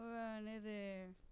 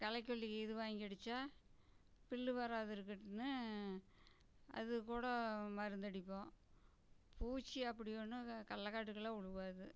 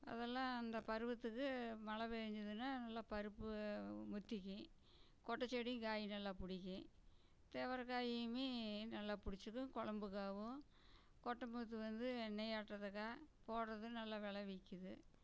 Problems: background sounds at intervals, low volume